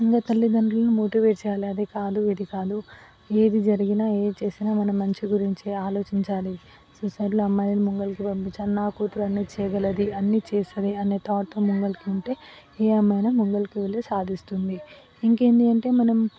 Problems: none marked